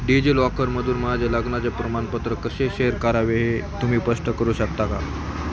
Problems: continuous background conversations